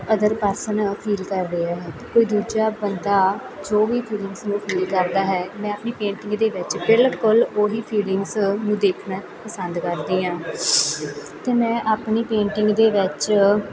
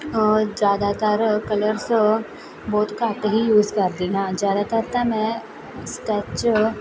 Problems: constant background noise, continuous background conversations